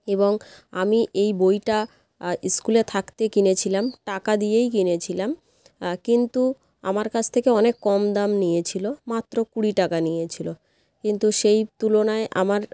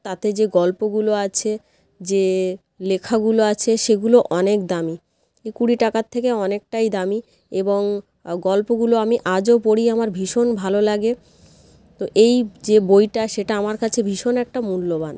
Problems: none marked